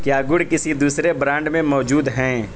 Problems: constant background noise